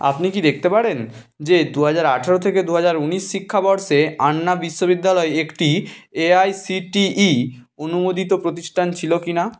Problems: none marked